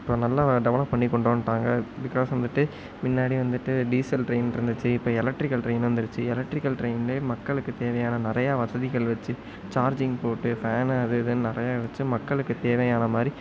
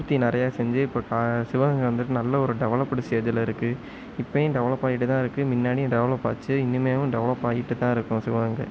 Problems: none marked